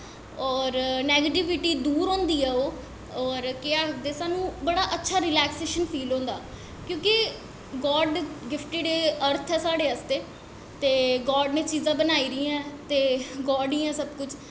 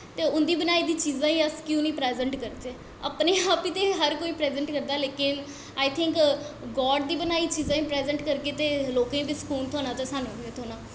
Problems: echo